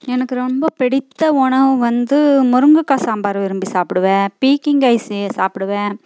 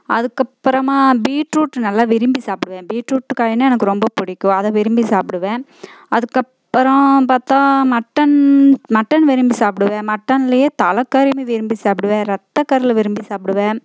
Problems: constant background noise